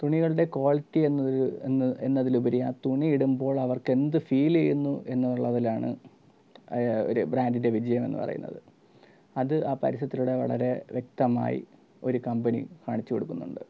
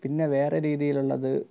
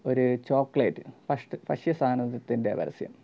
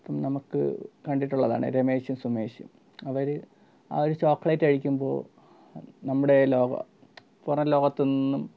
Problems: low volume